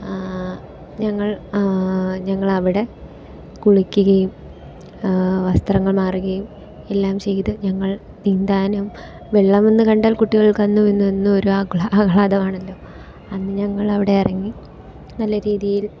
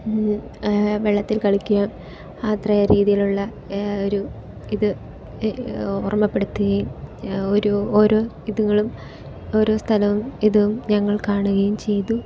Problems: background sounds at intervals, low volume